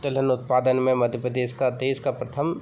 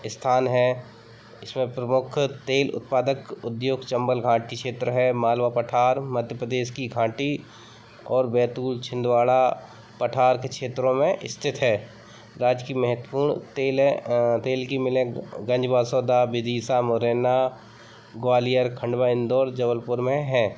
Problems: none marked